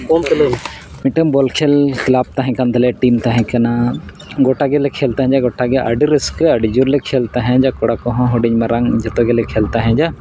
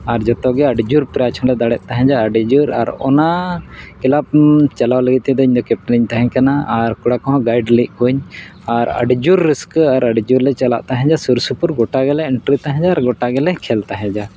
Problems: background sounds at intervals